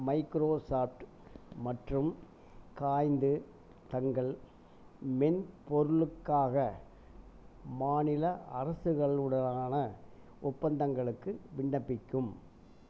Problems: none marked